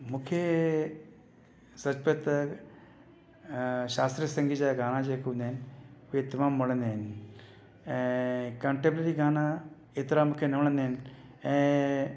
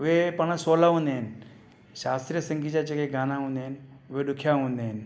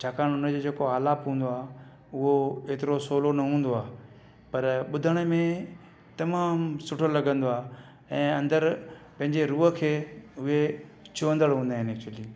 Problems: none marked